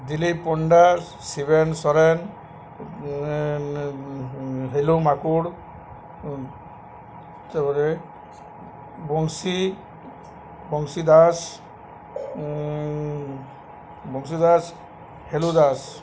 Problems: none marked